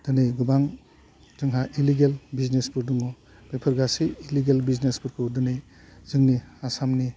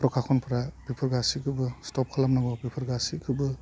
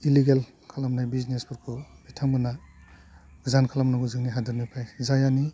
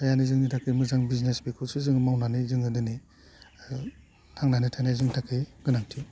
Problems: low volume